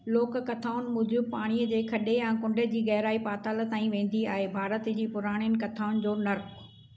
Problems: constant background noise